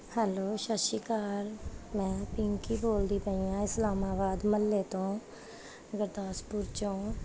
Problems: background sounds at intervals